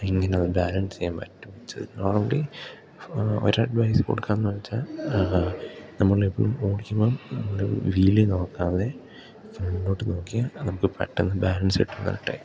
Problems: background sounds at intervals, low volume